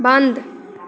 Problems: none marked